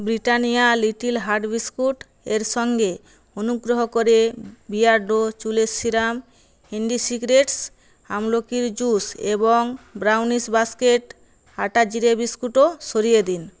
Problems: none marked